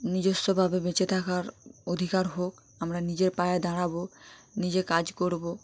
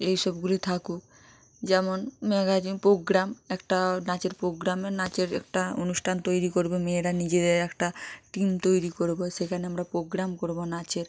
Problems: none marked